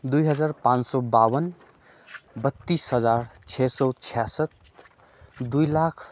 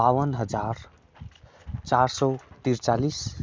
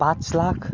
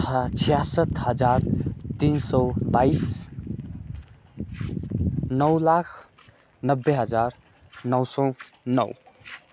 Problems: constant background noise